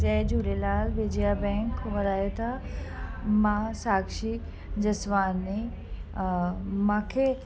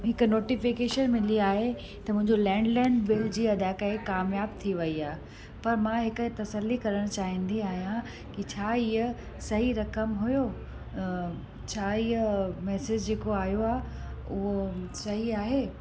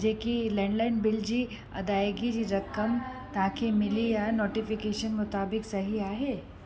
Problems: constant background noise